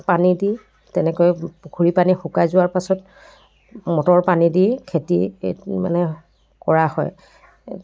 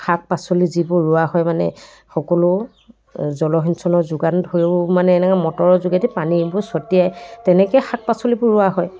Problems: constant background noise